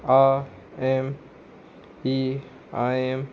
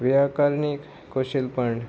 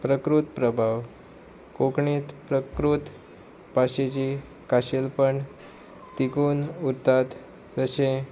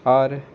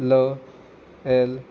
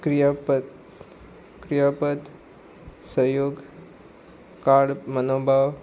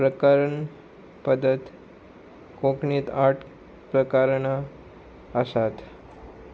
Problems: none marked